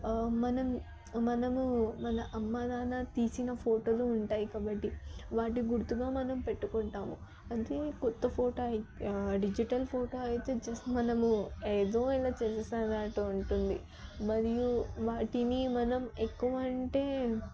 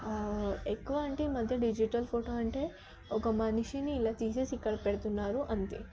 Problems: background conversations at intervals, low volume